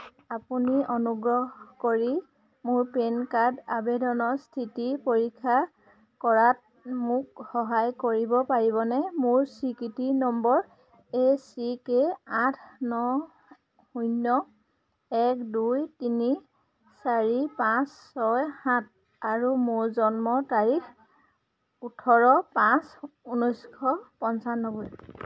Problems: constant background noise